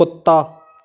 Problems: background sounds at intervals